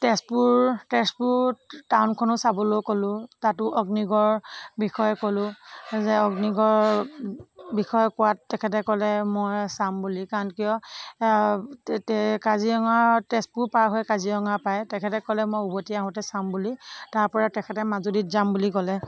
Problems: none marked